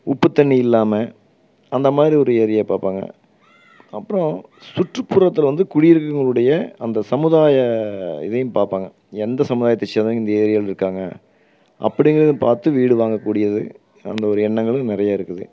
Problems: background conversations at intervals